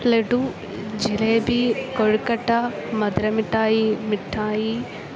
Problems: none marked